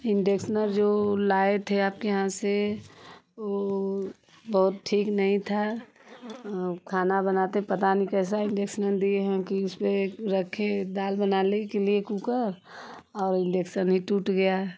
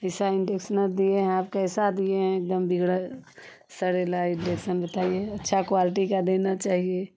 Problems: none marked